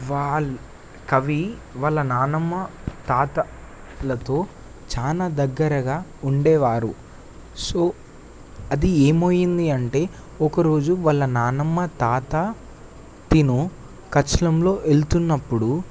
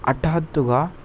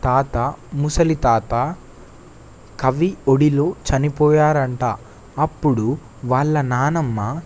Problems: constant background noise